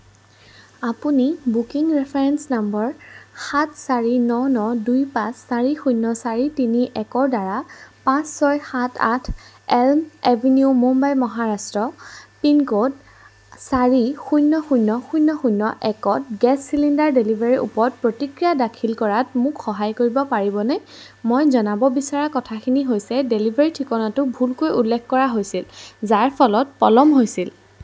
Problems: background sounds at intervals